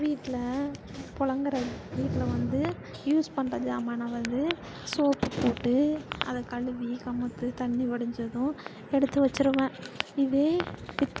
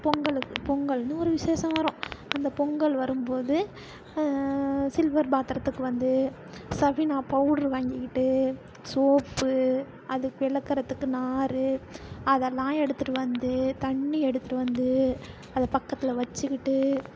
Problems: constant background noise, low volume